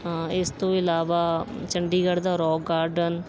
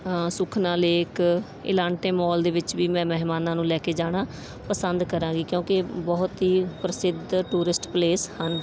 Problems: background sounds at intervals